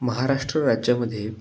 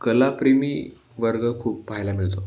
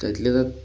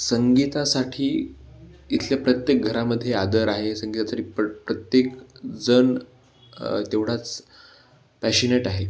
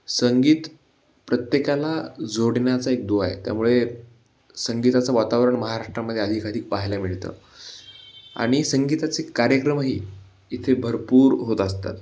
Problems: background sounds at intervals